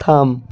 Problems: none marked